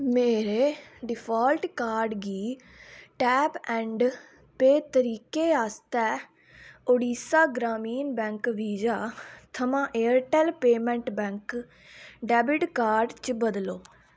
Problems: background sounds at intervals